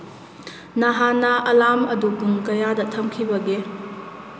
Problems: constant background noise